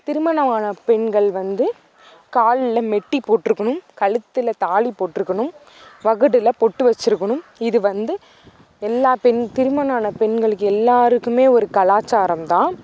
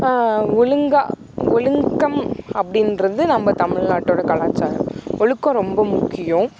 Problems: background sounds at intervals